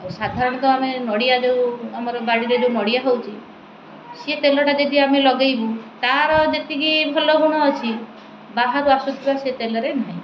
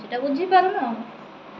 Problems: constant background noise